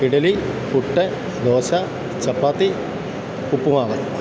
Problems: none marked